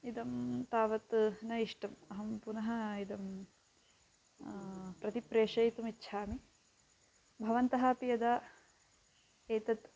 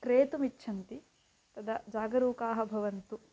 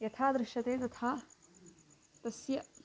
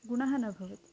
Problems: constant background noise